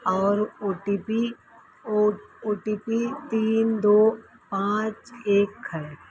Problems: constant background noise